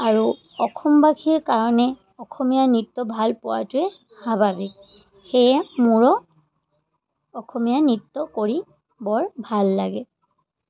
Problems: constant background noise